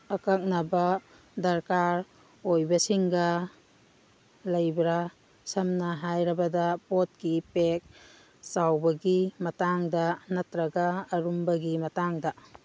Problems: background sounds at intervals